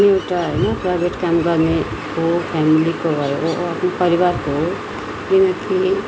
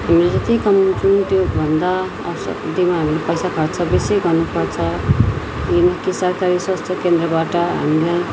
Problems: constant background noise, continuous background conversations